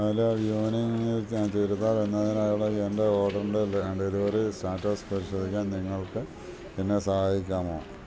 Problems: none marked